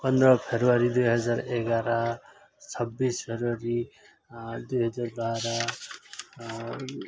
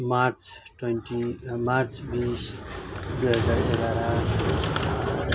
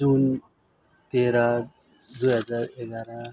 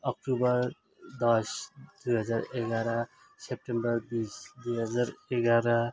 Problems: constant background noise